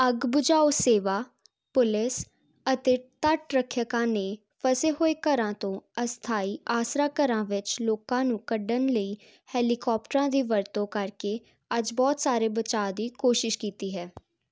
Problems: none marked